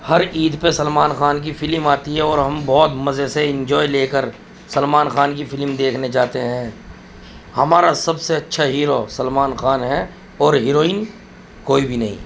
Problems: constant background noise